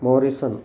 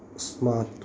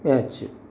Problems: constant background noise